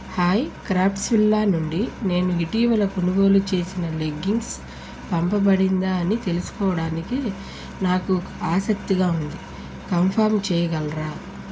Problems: constant background noise